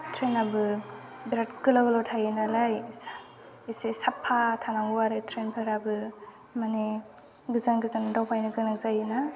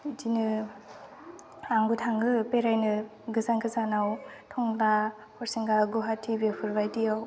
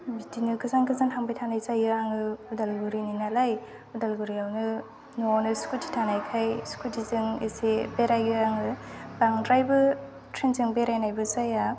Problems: none marked